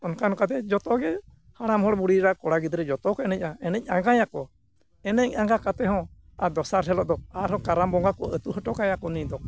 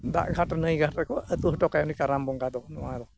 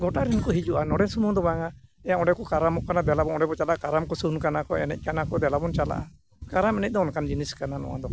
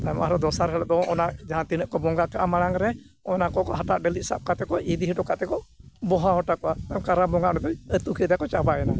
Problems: constant background noise